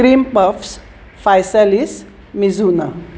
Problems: none marked